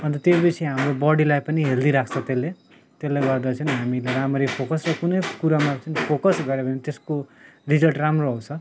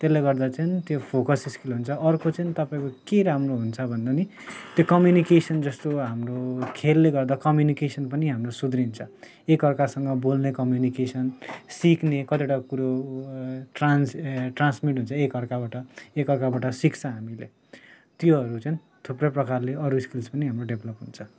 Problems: none marked